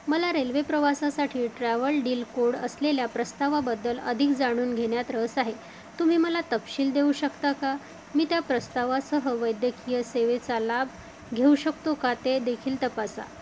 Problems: constant background noise